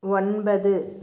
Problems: low volume